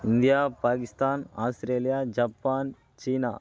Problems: constant background noise